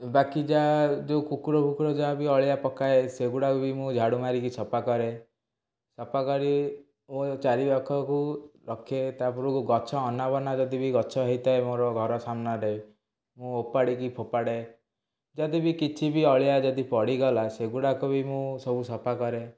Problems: none marked